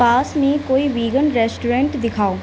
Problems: none marked